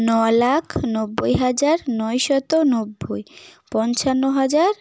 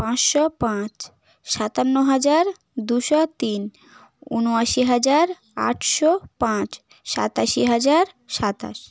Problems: none marked